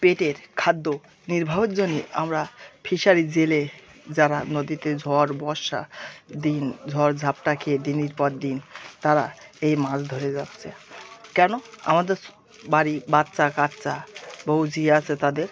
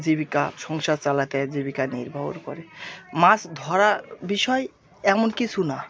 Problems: background sounds at intervals